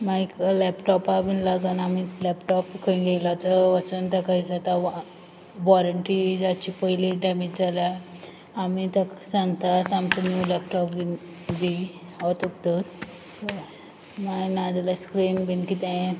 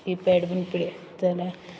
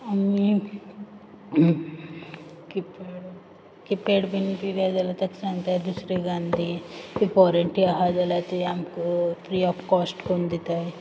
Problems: background sounds at intervals